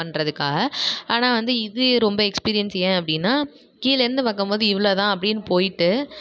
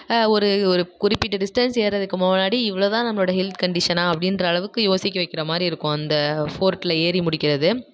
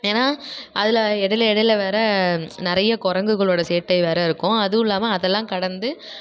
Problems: none marked